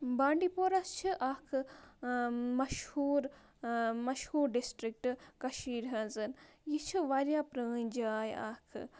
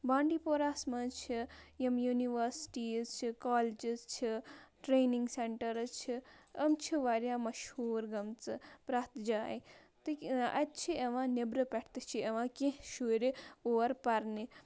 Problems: constant background noise